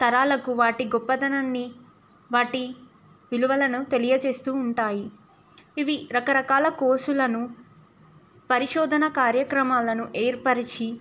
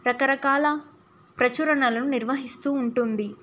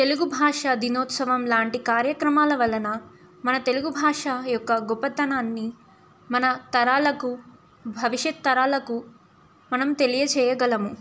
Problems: none marked